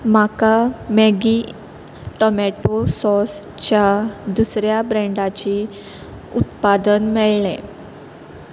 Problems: constant background noise